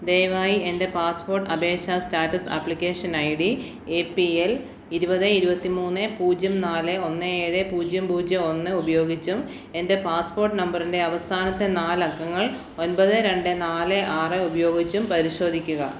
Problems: none marked